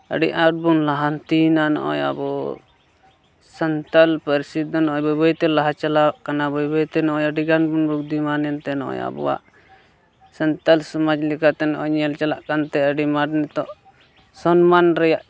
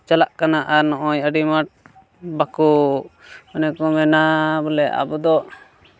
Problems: background sounds at intervals, background conversations at intervals